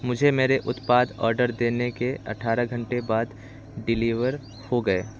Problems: constant background noise